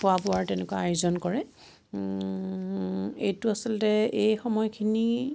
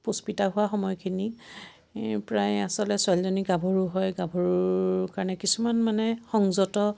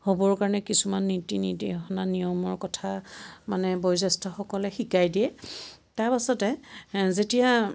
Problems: constant background noise